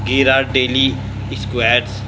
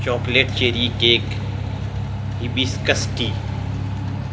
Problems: constant background noise